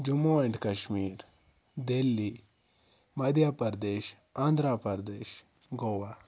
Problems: background sounds at intervals